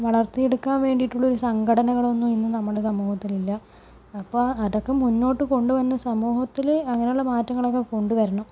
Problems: low volume